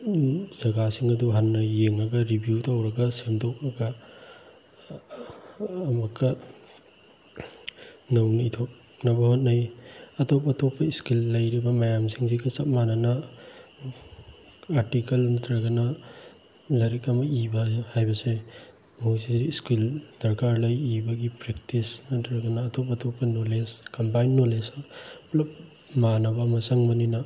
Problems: background sounds at intervals